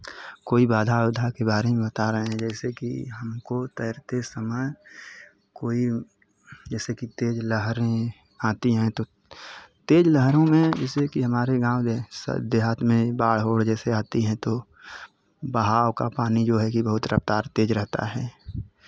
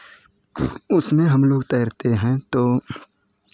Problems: constant background noise, continuous background conversations